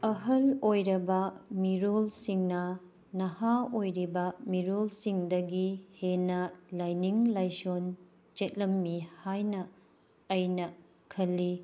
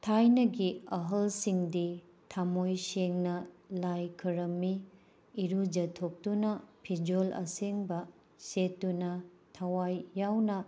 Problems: background sounds at intervals